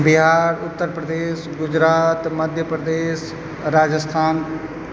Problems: constant background noise